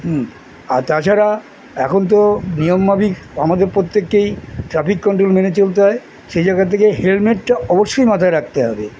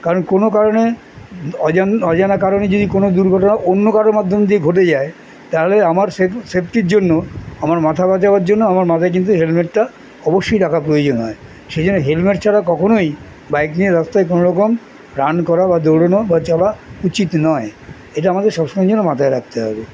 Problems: constant background noise